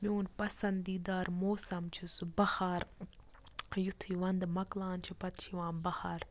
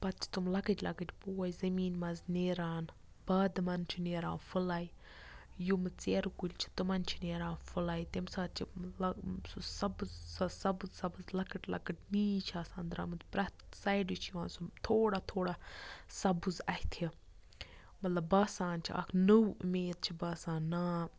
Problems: low volume